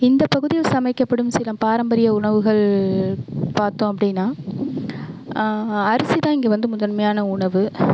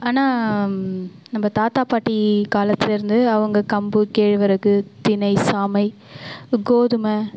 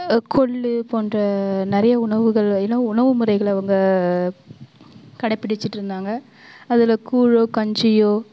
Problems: background sounds at intervals